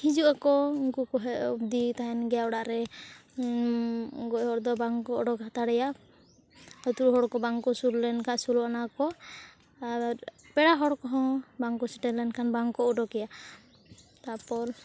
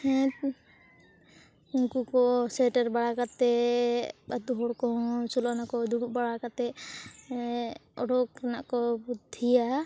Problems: none marked